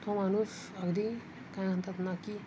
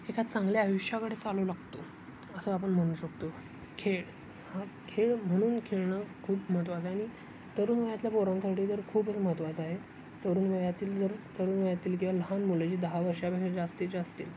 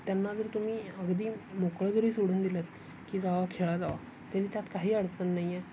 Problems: constant background noise, background conversations at intervals, low volume